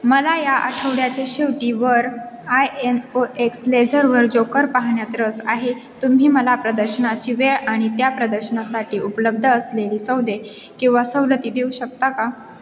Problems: constant background noise, background conversations at intervals, echo